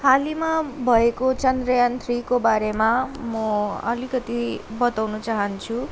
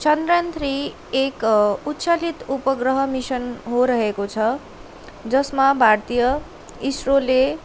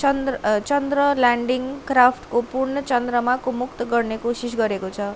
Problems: none marked